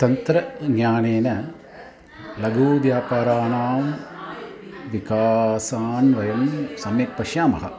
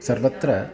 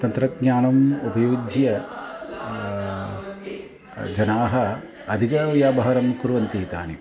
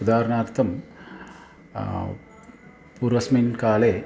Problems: continuous background conversations